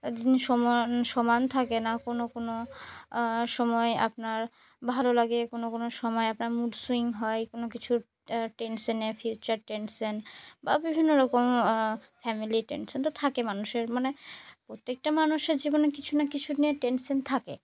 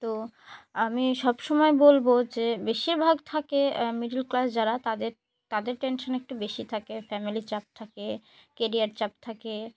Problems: none marked